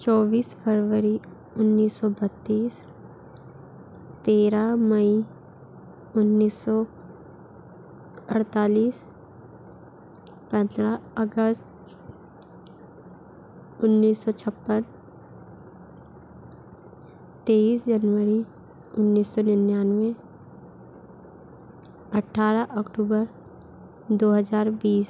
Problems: constant background noise